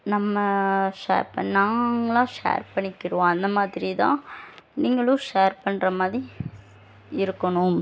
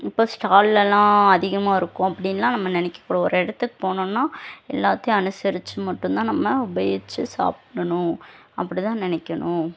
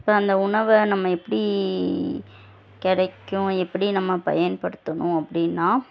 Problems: none marked